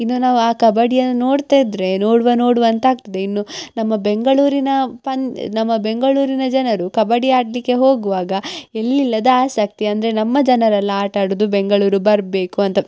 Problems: none marked